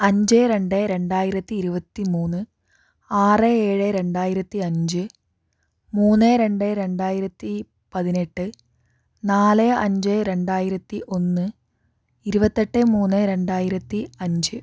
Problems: none marked